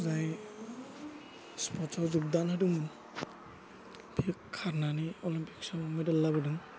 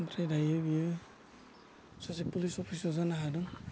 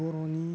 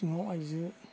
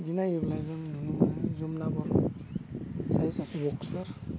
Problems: low volume